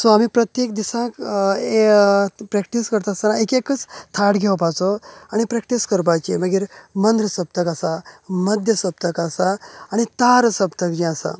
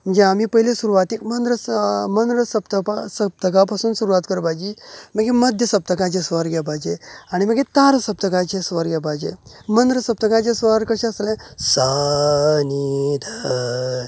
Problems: none marked